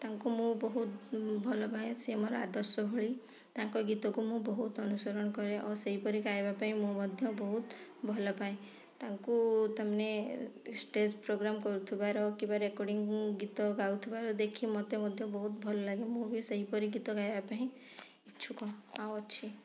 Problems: low volume